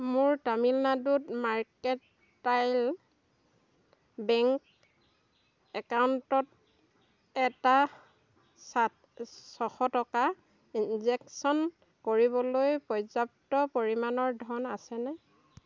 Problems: constant background noise